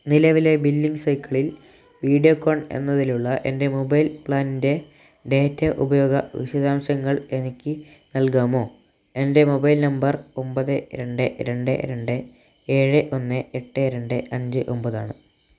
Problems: low volume